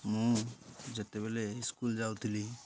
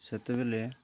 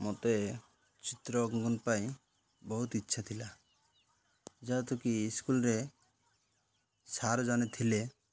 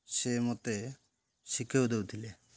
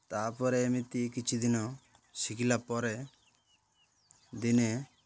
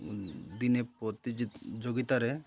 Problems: none marked